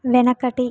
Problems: none marked